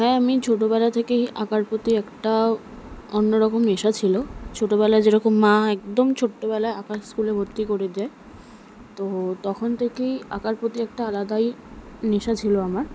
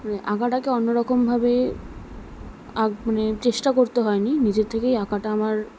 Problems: none marked